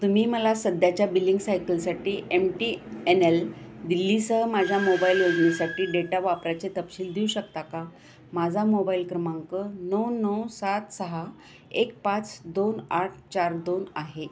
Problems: constant background noise